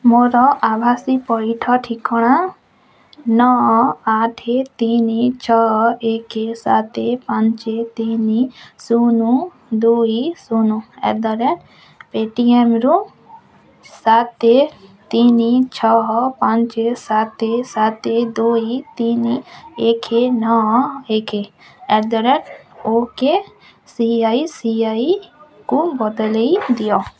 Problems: constant background noise